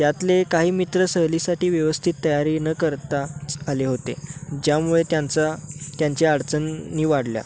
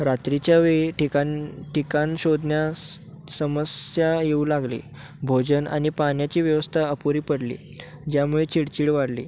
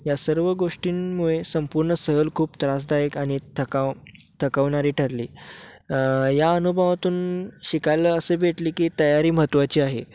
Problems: none marked